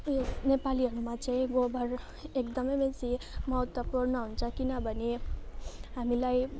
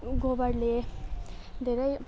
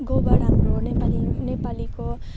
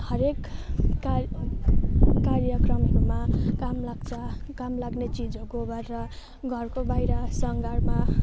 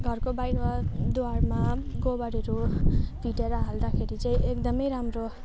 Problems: constant background noise